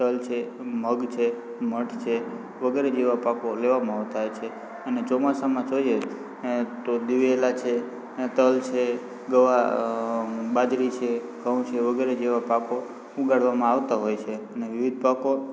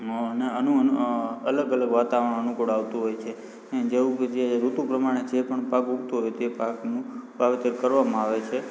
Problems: constant background noise, background conversations at intervals